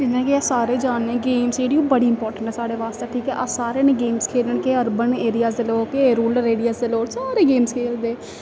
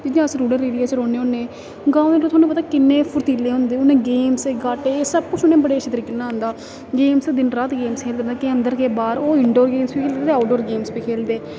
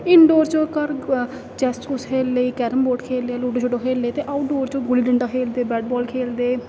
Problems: constant background noise